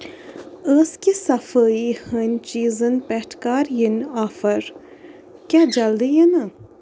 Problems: constant background noise